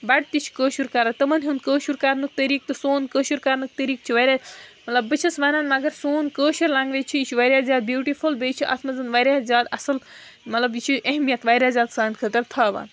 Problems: background sounds at intervals